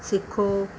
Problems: background sounds at intervals